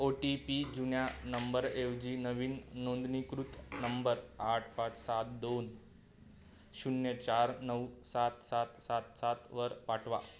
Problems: constant background noise